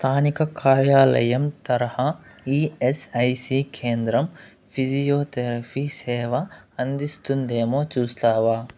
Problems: none marked